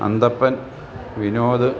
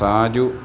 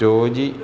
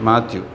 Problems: continuous background conversations